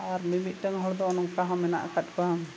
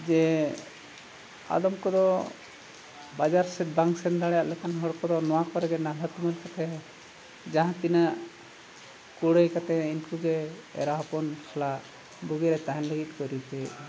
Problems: background sounds at intervals